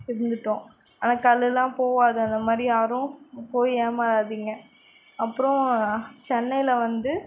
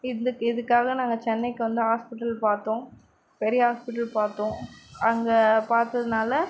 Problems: none marked